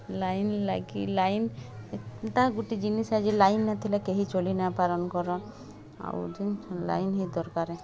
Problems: constant background noise